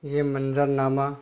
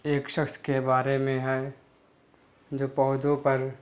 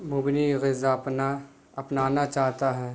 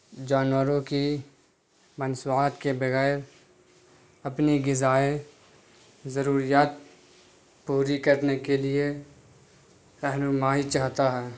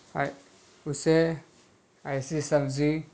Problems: constant background noise